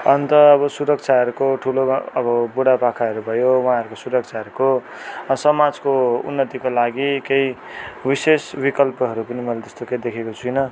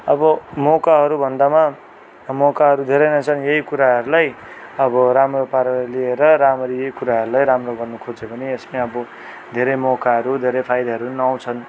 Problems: background sounds at intervals